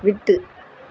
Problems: none marked